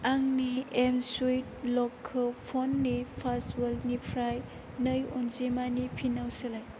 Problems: low volume